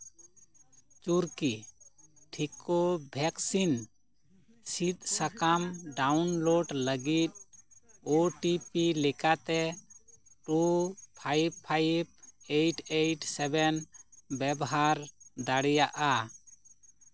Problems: none marked